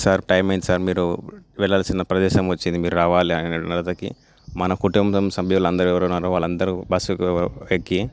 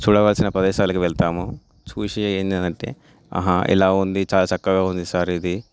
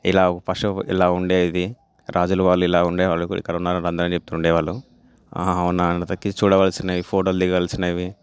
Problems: none marked